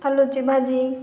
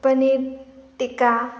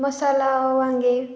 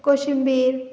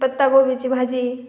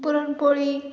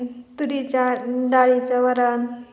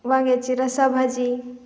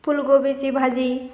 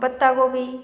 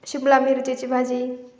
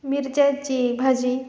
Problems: none marked